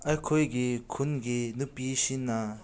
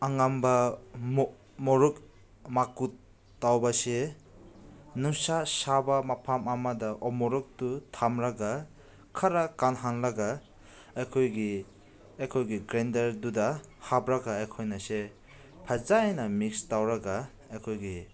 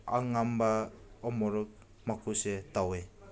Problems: background conversations at intervals